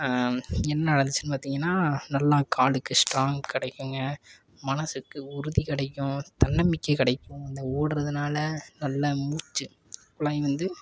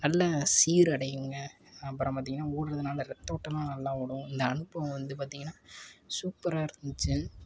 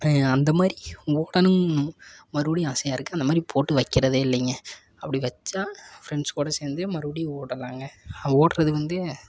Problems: constant background noise